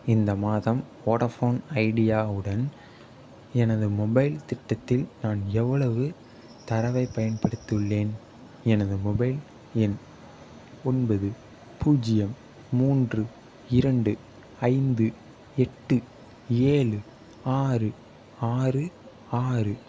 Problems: none marked